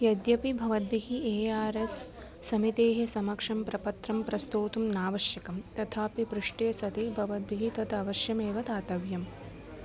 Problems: constant background noise